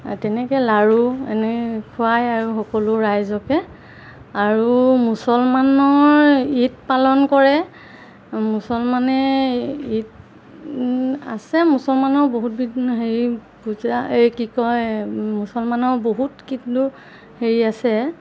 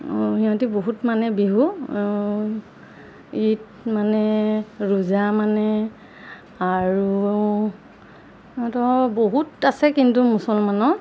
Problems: none marked